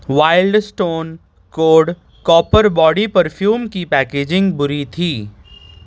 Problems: none marked